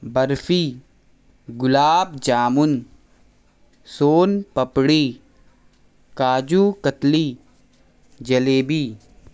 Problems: constant background noise